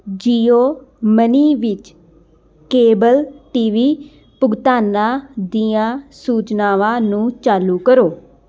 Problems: background sounds at intervals